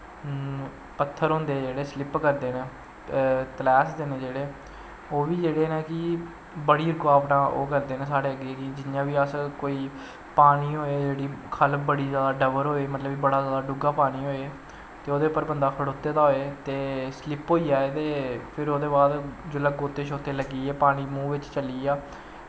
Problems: constant background noise